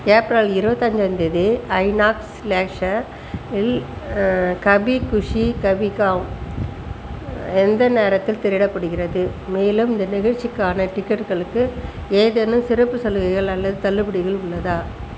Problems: constant background noise